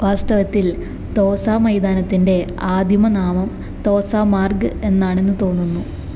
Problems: none marked